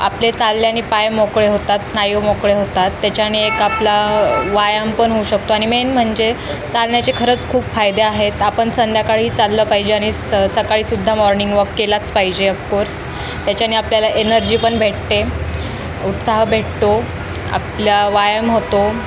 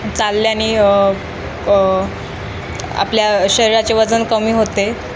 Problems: constant background noise